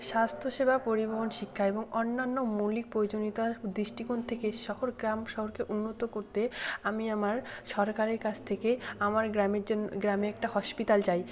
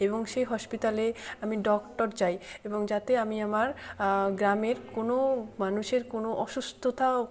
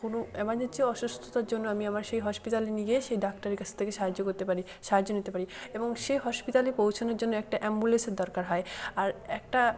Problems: background sounds at intervals, continuous background conversations